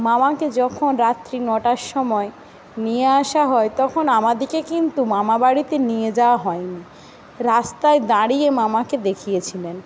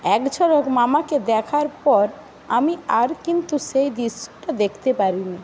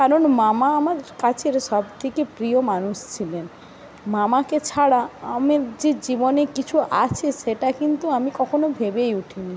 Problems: constant background noise